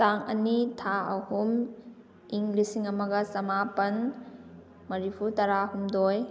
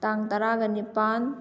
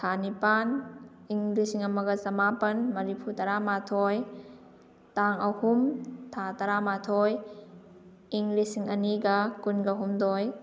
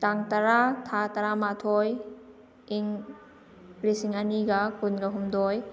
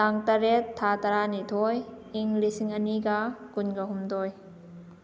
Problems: background sounds at intervals